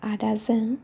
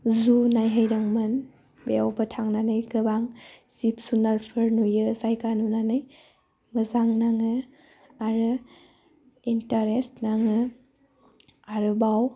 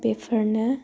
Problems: low volume